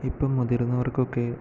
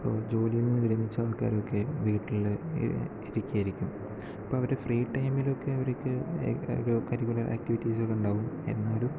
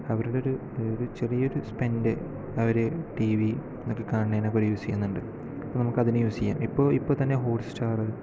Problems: low volume